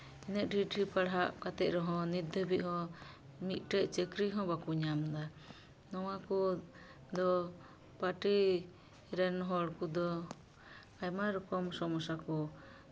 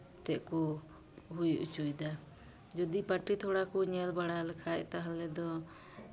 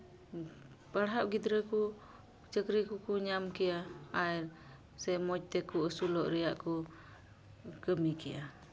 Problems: none marked